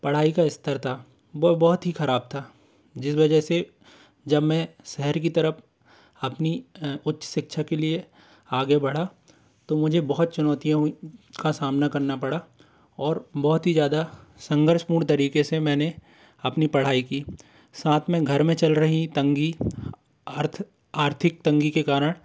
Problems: constant background noise